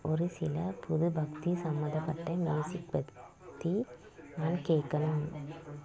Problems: low volume